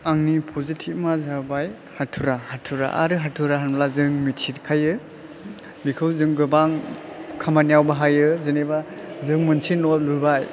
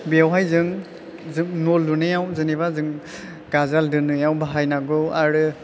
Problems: low volume